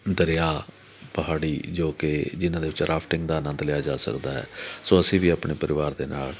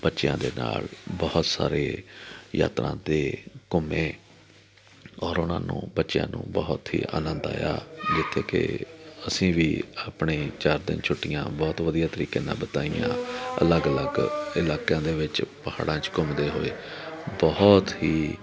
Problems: background conversations at intervals